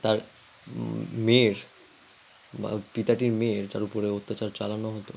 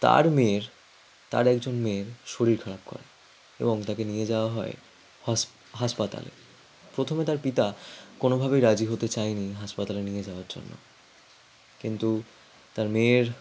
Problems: background sounds at intervals